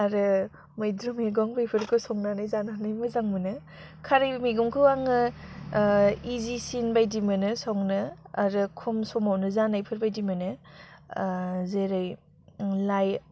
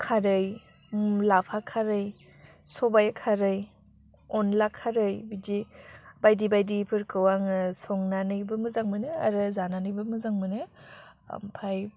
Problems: low volume